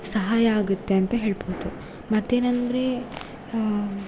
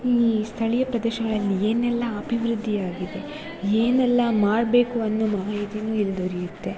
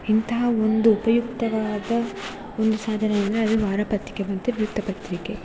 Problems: constant background noise